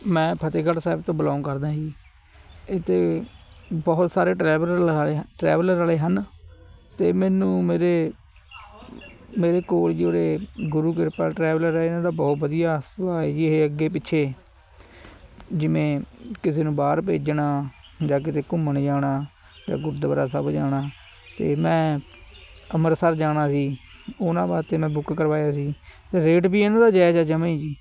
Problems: constant background noise